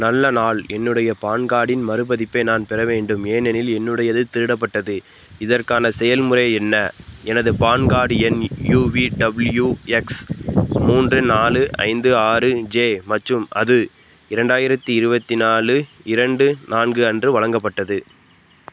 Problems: background sounds at intervals